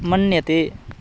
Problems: none marked